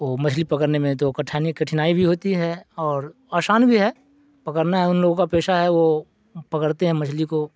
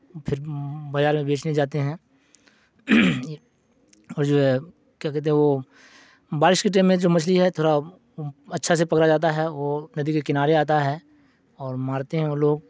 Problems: none marked